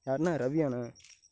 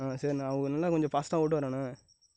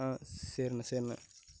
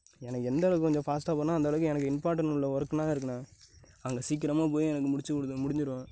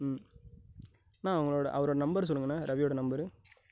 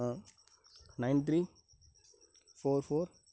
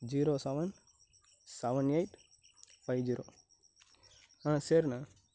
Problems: background sounds at intervals, low volume